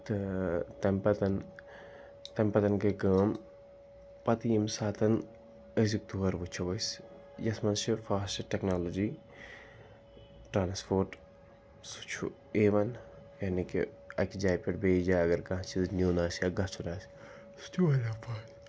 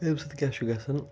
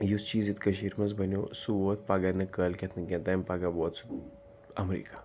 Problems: background sounds at intervals, background conversations at intervals